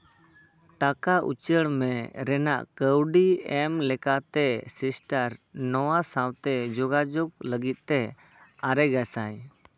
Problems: background sounds at intervals